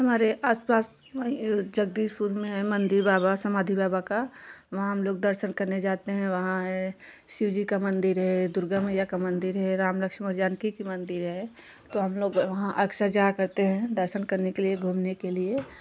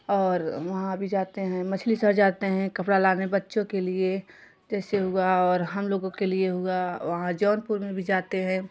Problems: background sounds at intervals, continuous background conversations